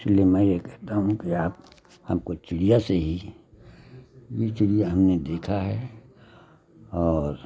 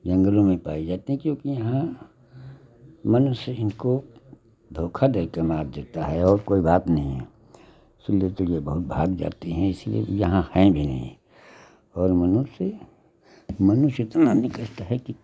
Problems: none marked